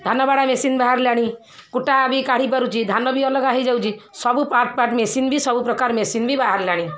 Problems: none marked